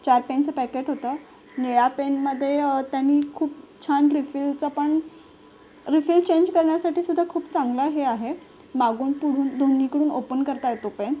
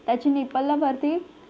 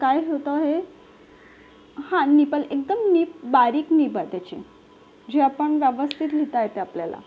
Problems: none marked